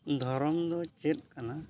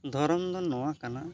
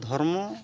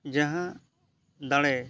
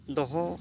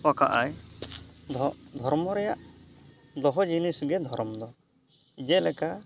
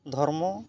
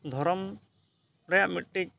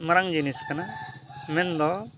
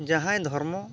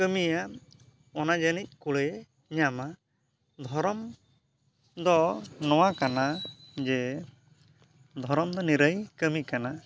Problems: background sounds at intervals